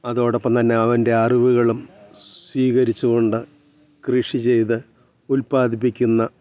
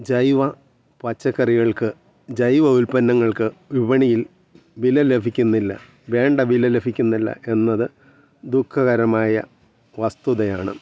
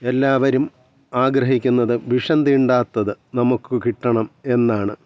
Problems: background sounds at intervals